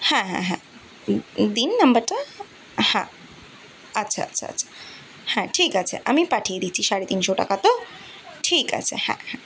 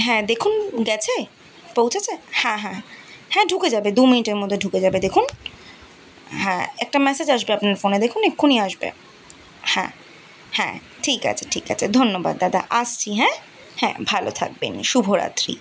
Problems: continuous background conversations